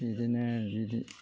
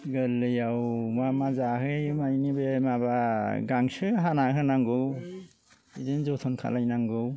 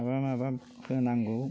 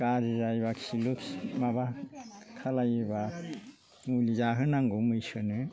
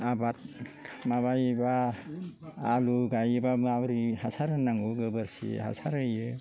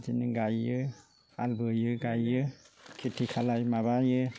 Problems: low volume